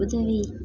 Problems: constant background noise